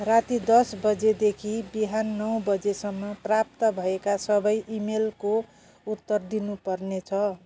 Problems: none marked